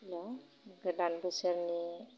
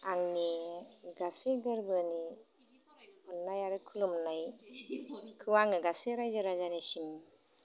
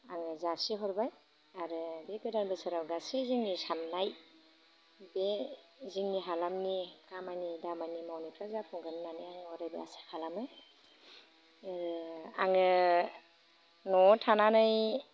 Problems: low volume